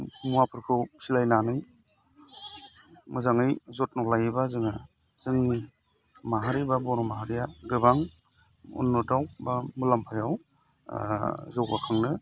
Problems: constant background noise